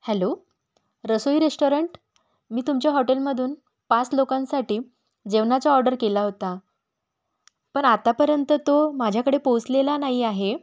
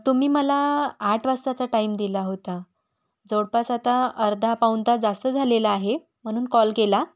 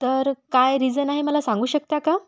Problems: background sounds at intervals